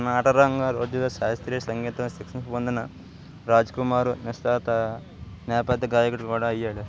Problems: constant background noise